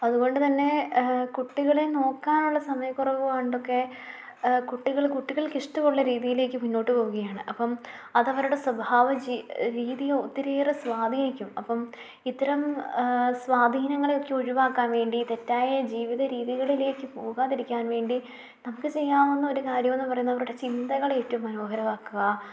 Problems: low volume